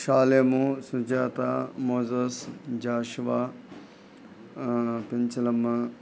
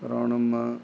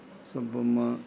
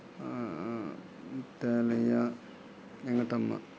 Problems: background sounds at intervals